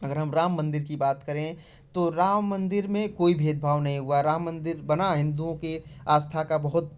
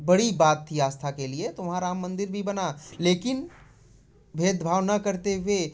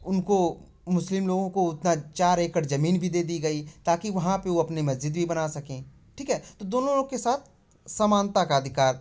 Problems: none marked